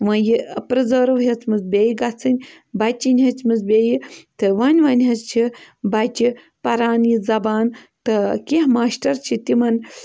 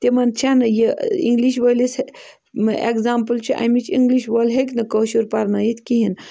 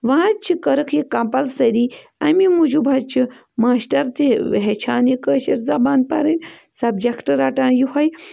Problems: none marked